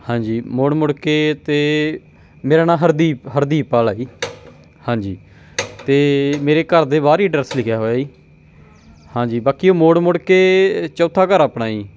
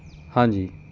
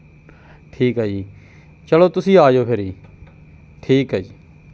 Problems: background sounds at intervals